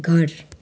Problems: none marked